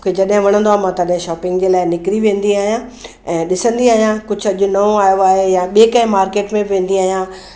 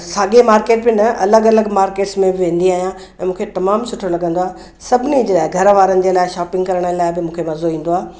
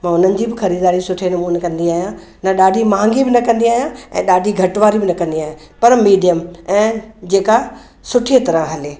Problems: none marked